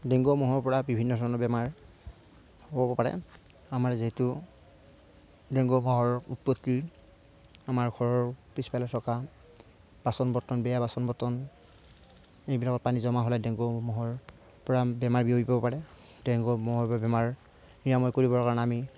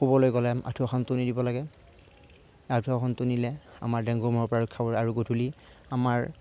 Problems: none marked